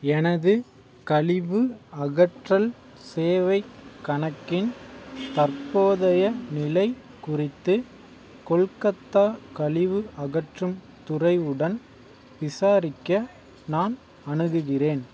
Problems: background sounds at intervals